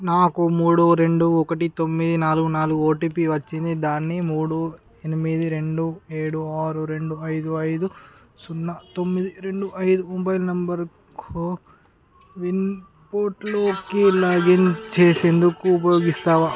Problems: background conversations at intervals